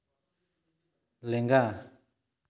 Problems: echo